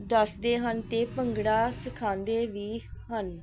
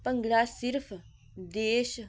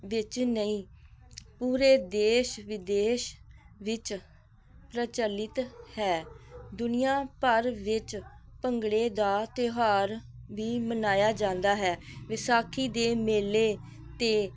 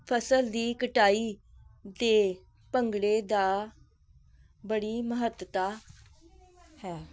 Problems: none marked